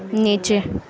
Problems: constant background noise